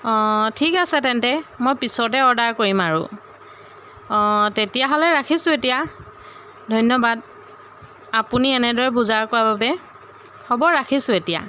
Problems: none marked